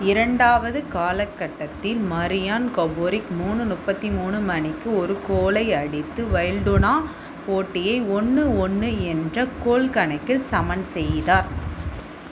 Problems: constant background noise